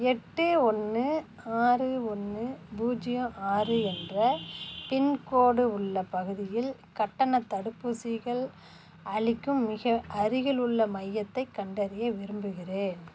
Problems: none marked